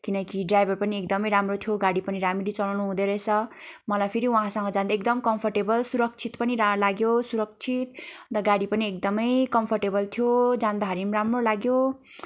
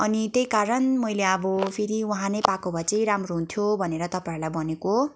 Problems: constant background noise